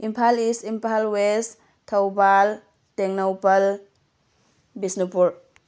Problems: none marked